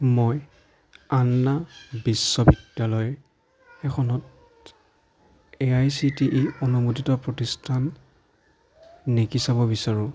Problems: background conversations at intervals